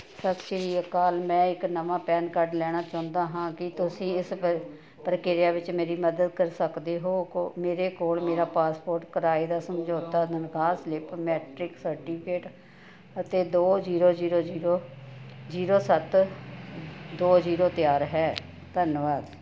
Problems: none marked